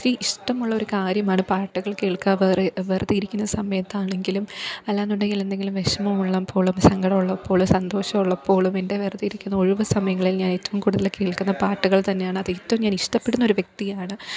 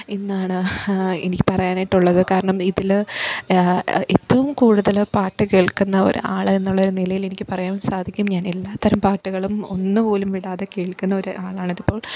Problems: background sounds at intervals